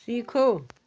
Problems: none marked